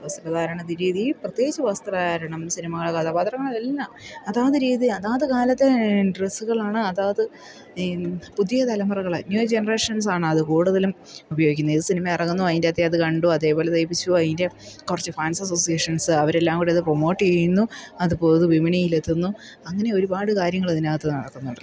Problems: background sounds at intervals